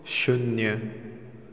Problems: none marked